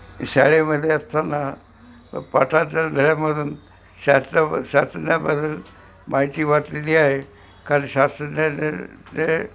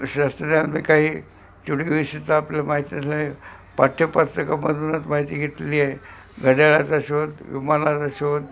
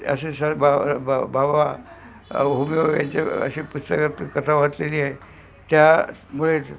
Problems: constant background noise, background conversations at intervals